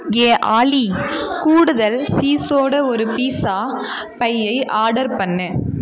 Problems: continuous background conversations